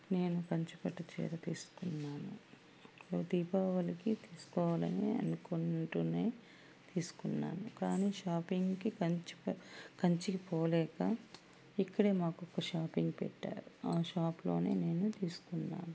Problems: none marked